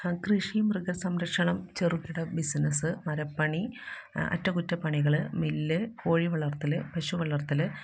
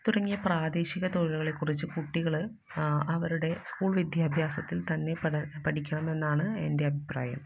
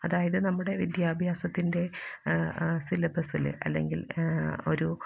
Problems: background sounds at intervals, low volume